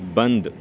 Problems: background sounds at intervals